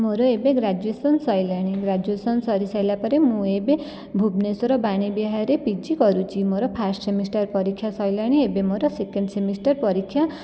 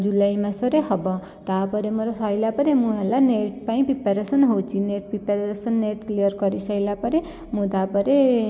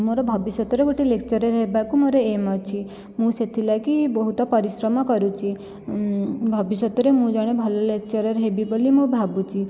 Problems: none marked